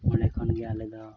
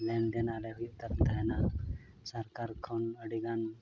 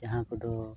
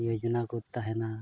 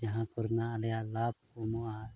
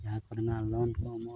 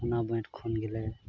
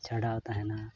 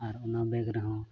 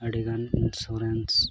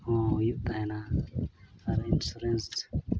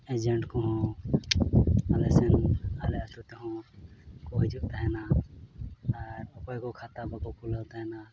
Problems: constant background noise, low volume